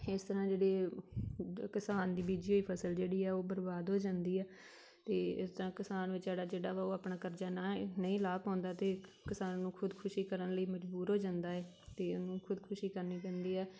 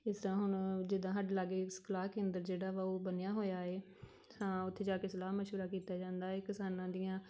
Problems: background conversations at intervals